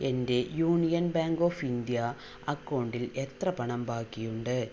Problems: constant background noise, low volume